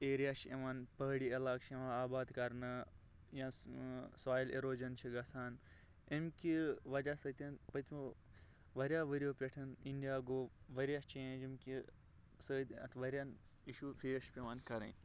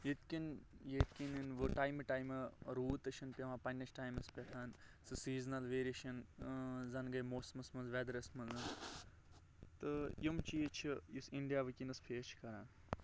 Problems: background sounds at intervals